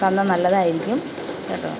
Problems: constant background noise, low volume